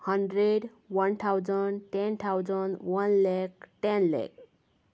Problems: none marked